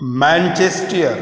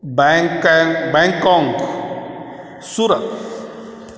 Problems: constant background noise, echo